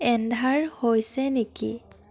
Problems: constant background noise